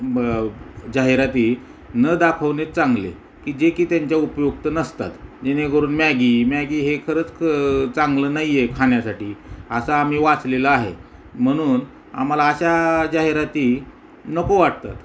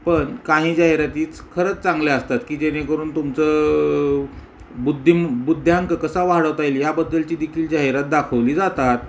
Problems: background sounds at intervals